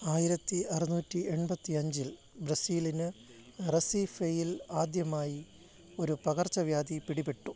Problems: background sounds at intervals